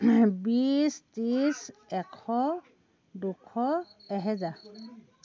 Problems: background sounds at intervals, background conversations at intervals